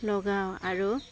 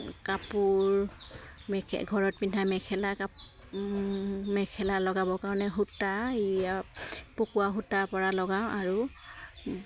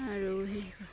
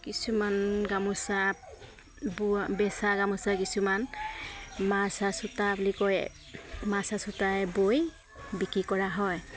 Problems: constant background noise